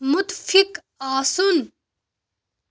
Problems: none marked